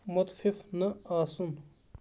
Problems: background sounds at intervals